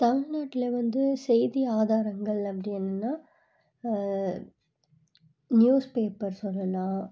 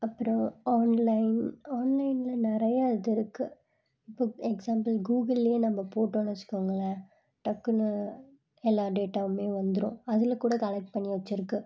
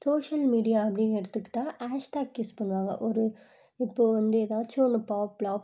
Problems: low volume